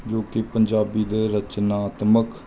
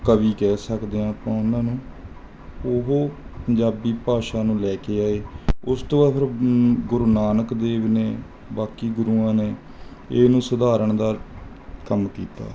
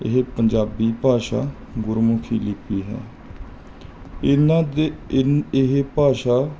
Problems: background sounds at intervals